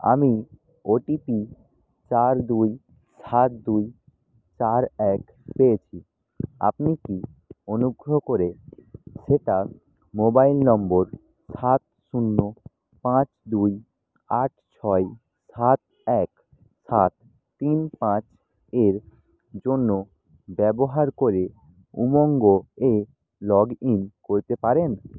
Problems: none marked